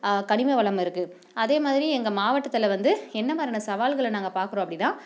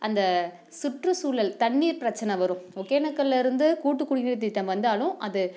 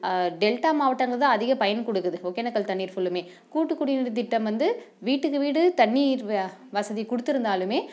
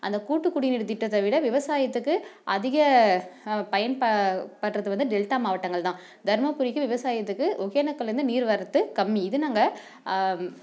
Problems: none marked